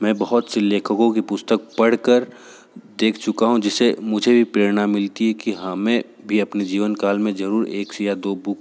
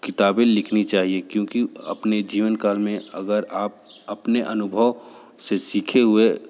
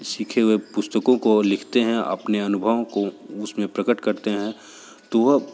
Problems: background sounds at intervals